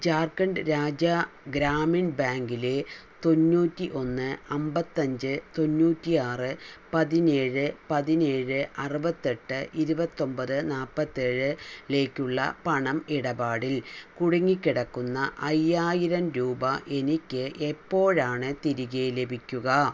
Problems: none marked